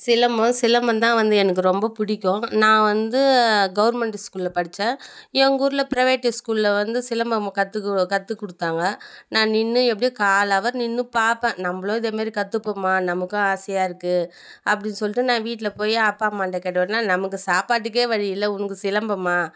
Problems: none marked